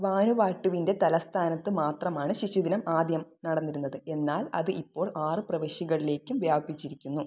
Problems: none marked